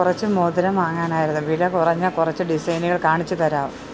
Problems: none marked